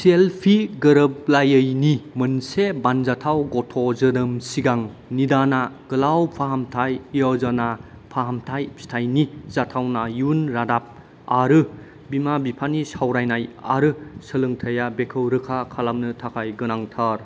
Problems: none marked